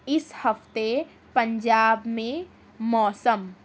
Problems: none marked